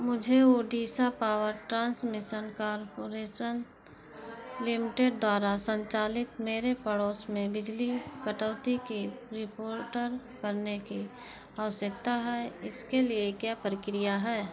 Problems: constant background noise